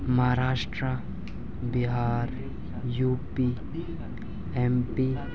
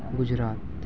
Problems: constant background noise, continuous background conversations, low volume